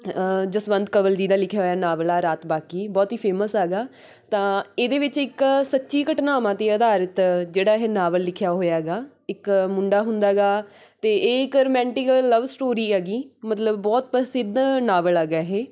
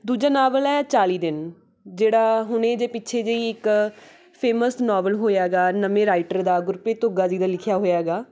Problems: none marked